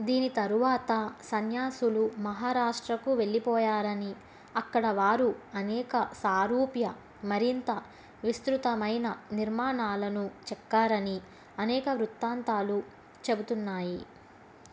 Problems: constant background noise